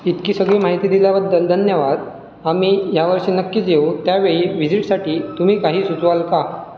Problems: none marked